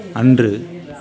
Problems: constant background noise, continuous background conversations